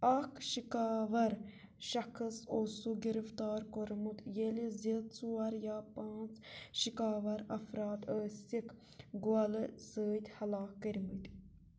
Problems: low volume